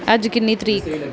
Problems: none marked